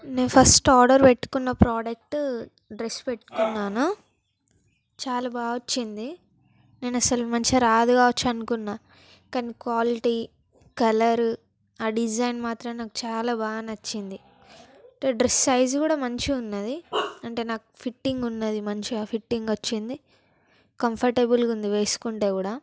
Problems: background sounds at intervals